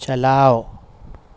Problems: none marked